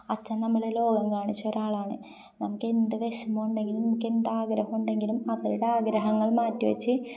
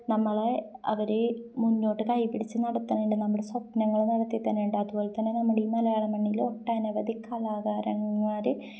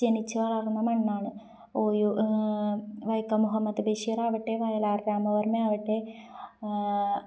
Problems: none marked